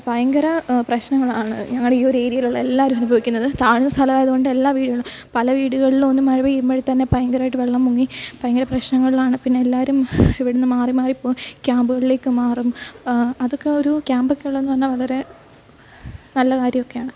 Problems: background sounds at intervals